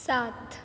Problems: constant background noise